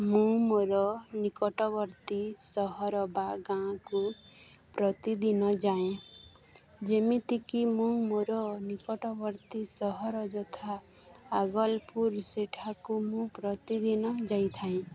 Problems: constant background noise, continuous background conversations